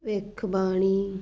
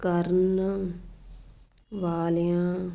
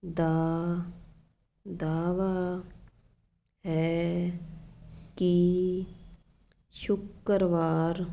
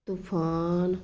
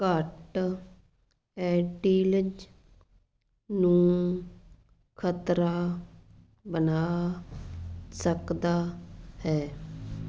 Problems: none marked